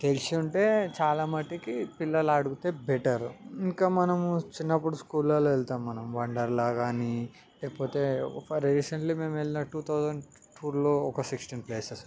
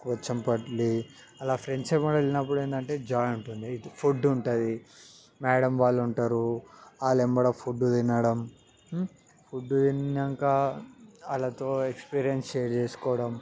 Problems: background sounds at intervals